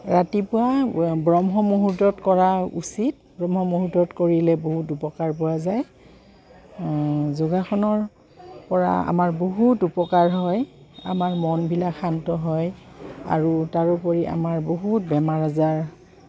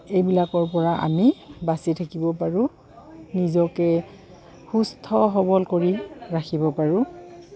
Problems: background sounds at intervals